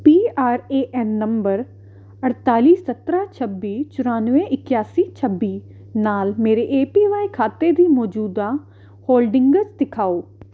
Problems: constant background noise